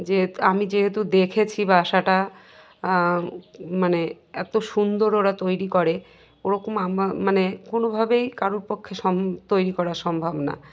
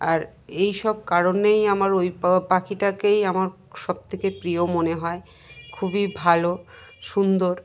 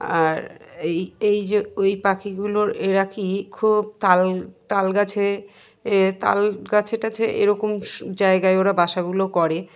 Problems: none marked